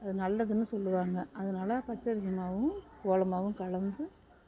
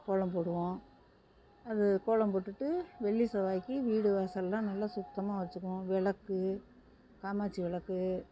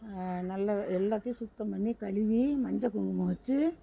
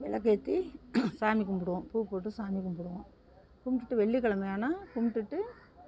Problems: background sounds at intervals